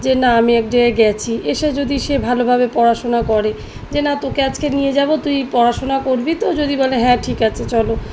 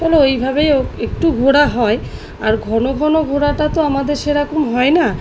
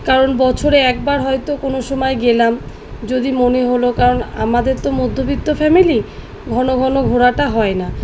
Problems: background sounds at intervals